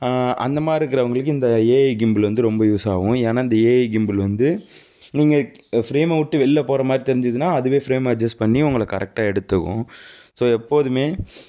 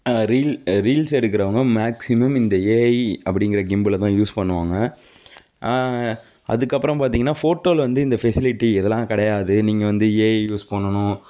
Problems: none marked